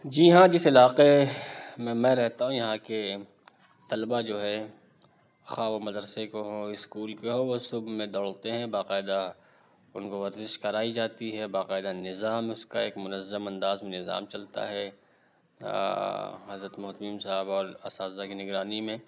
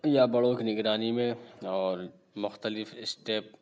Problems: none marked